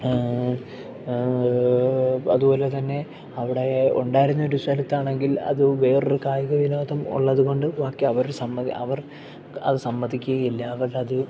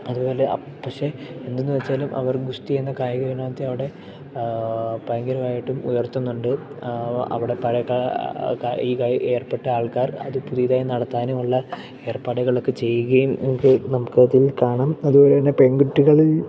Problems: background sounds at intervals, background conversations at intervals